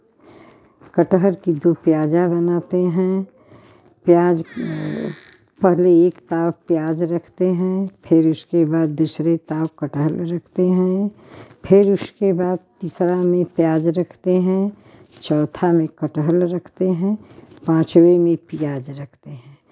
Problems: none marked